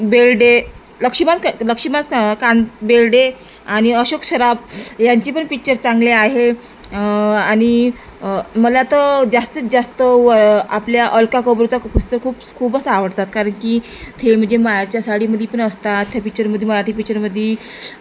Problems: constant background noise